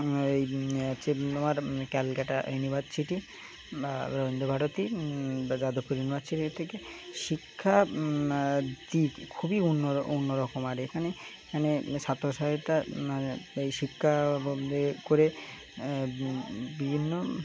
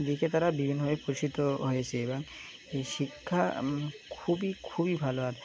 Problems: constant background noise, continuous background conversations